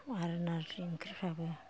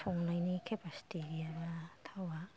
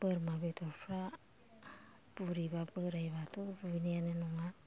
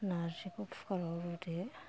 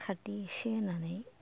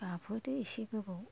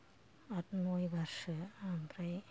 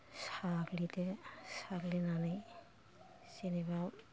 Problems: low volume